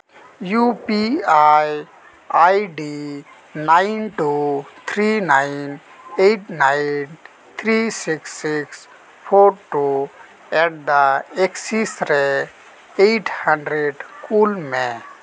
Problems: continuous background conversations